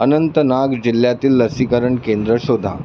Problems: constant background noise